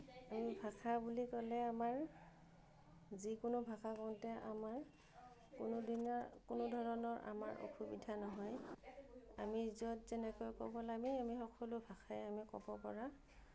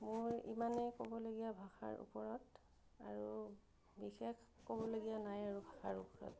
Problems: none marked